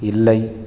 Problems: none marked